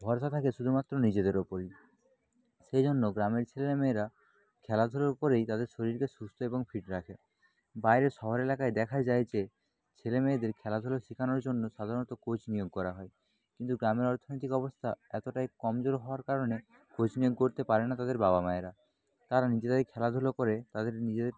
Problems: background sounds at intervals, continuous background conversations